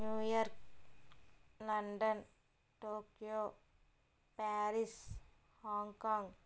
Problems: low volume